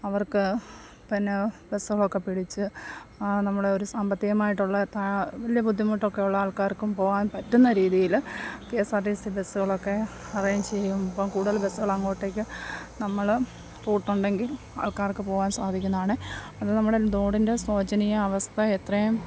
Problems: background sounds at intervals, low volume